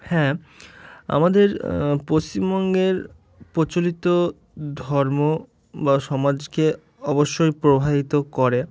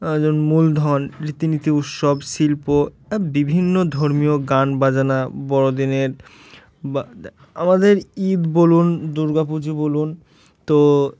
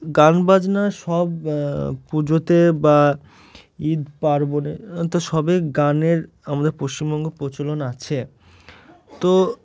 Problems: background sounds at intervals